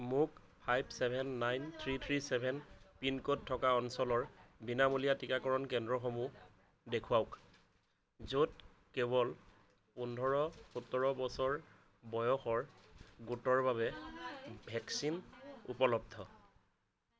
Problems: none marked